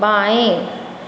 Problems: constant background noise